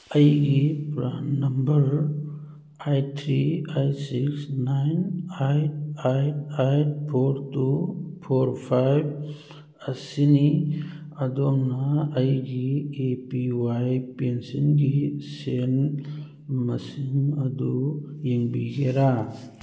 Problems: none marked